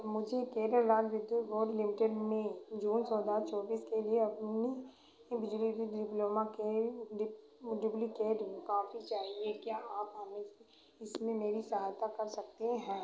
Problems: constant background noise